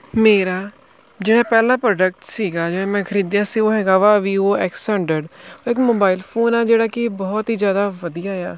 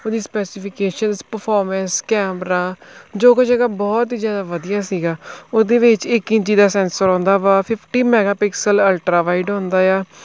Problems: none marked